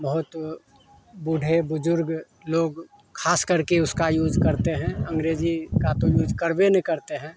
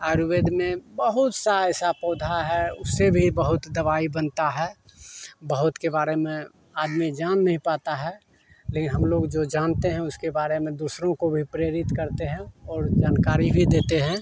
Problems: constant background noise